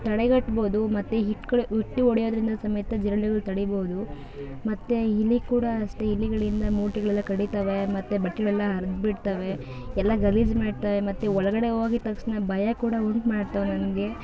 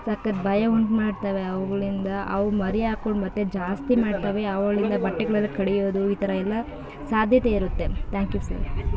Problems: background sounds at intervals